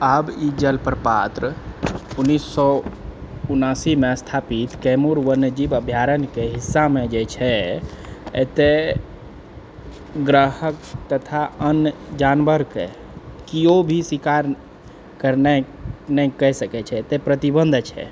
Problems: background sounds at intervals